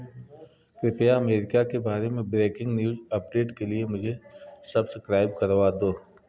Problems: background sounds at intervals